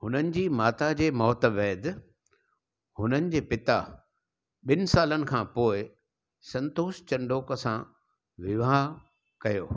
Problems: none marked